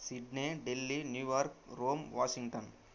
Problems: constant background noise